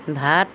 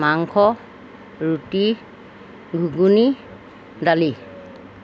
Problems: background sounds at intervals